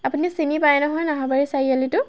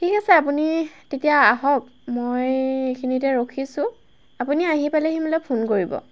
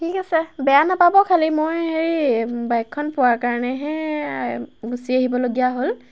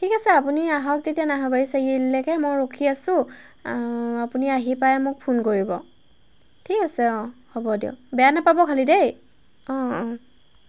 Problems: none marked